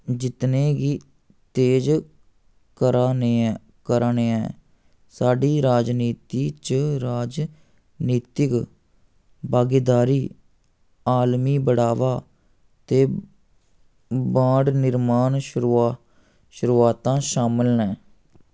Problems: none marked